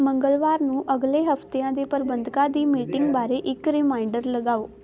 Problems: constant background noise